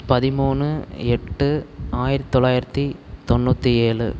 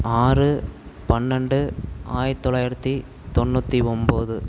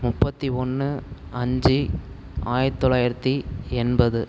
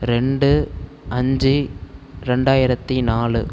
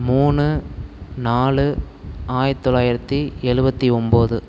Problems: constant background noise